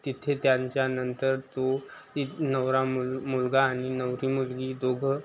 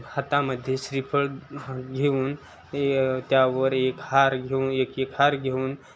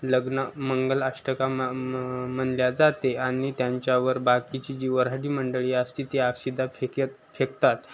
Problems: none marked